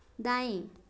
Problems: none marked